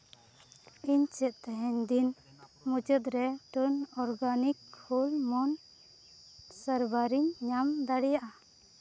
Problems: background sounds at intervals, low volume